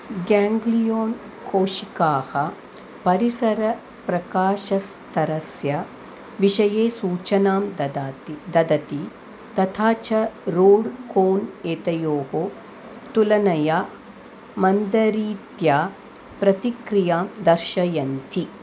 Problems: none marked